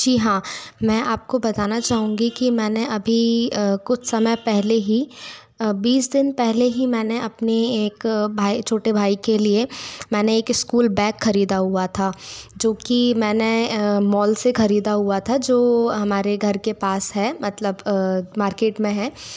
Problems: none marked